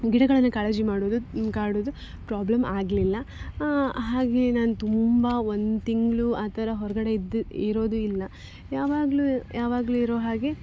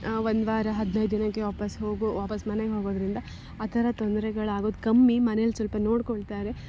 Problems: background sounds at intervals